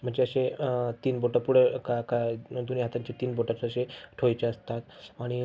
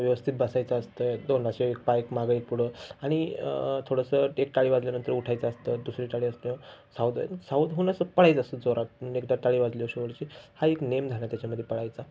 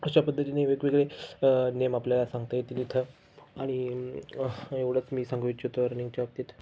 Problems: background sounds at intervals